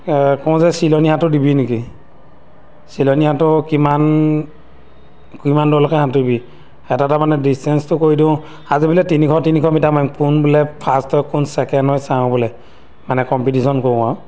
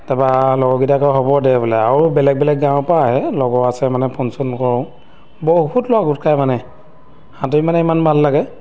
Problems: background sounds at intervals